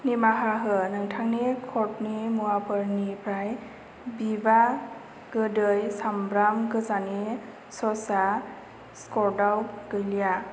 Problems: constant background noise